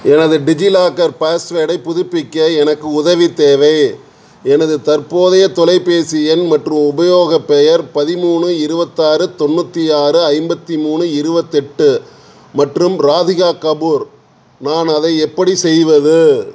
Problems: constant background noise